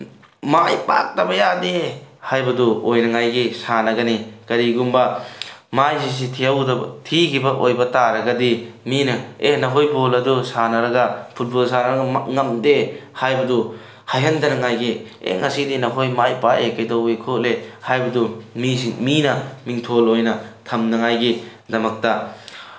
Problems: none marked